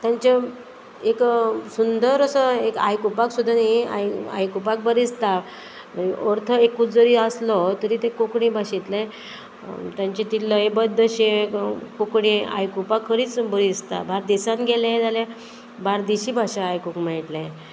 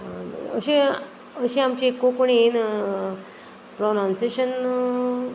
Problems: none marked